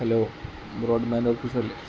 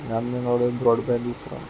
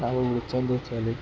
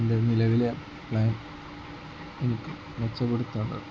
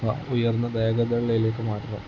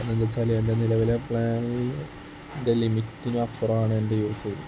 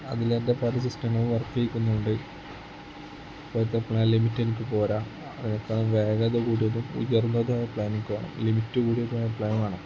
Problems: constant background noise, low volume